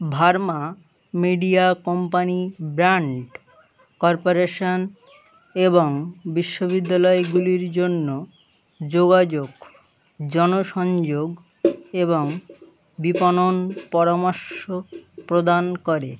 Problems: none marked